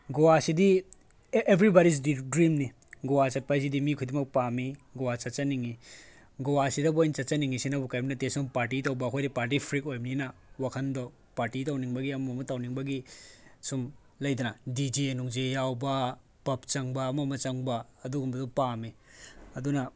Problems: background conversations at intervals